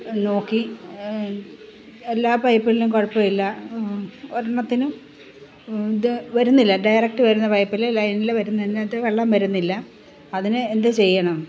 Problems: background sounds at intervals